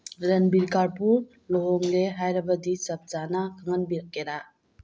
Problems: background sounds at intervals